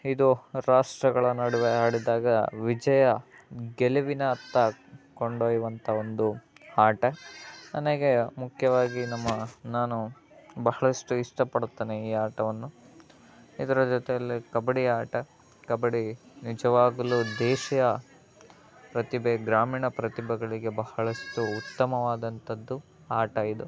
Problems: constant background noise